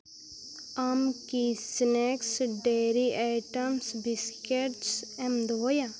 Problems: constant background noise, low volume